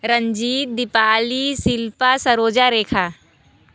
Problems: none marked